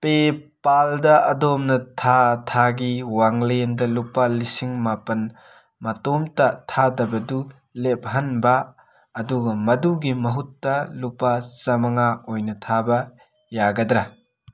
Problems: background sounds at intervals